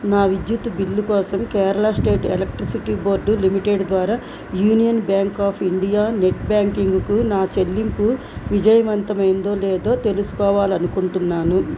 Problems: constant background noise